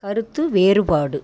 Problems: none marked